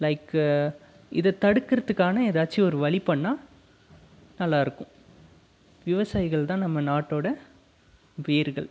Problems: none marked